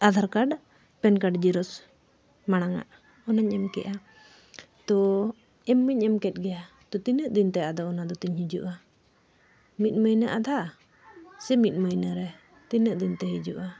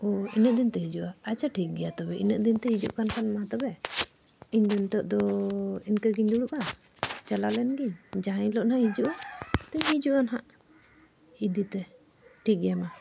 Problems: background sounds at intervals, background conversations at intervals